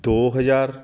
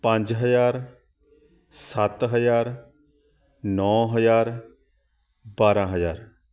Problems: continuous background conversations